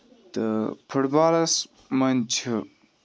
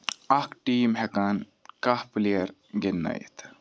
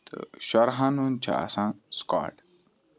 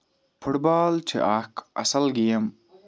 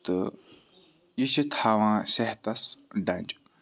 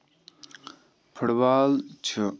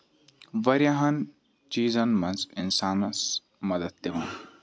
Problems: background sounds at intervals